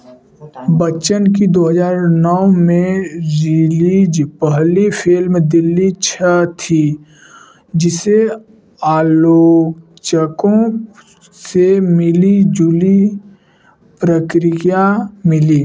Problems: background conversations at intervals